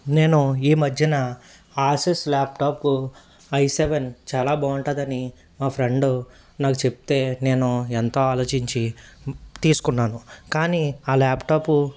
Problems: none marked